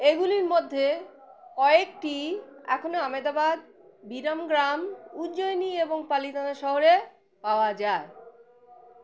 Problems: background sounds at intervals